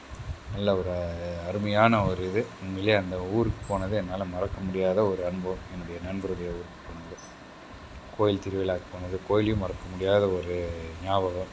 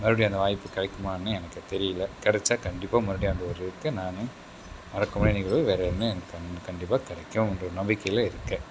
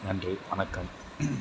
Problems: none marked